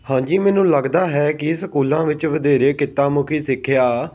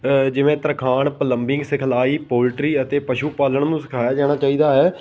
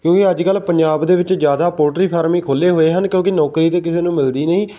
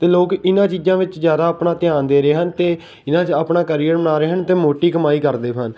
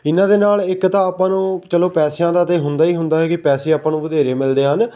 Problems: none marked